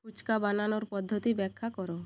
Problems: constant background noise